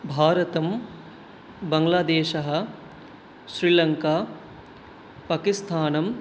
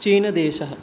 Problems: none marked